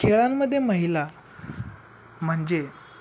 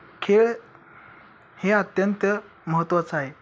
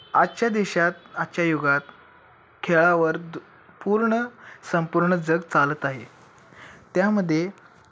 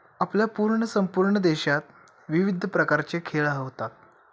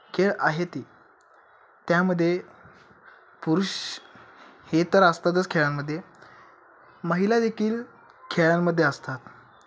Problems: constant background noise, continuous background conversations